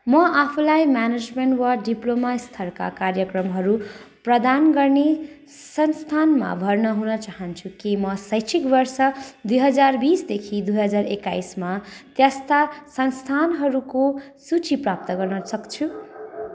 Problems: constant background noise